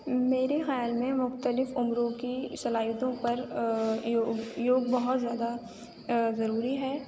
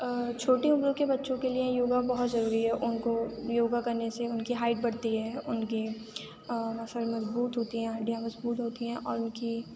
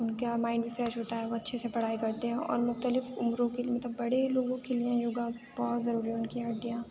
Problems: constant background noise